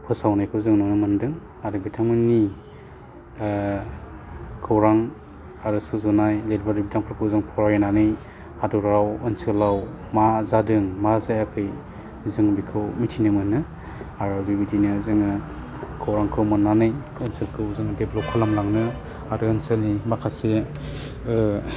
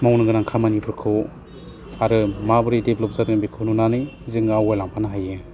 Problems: low volume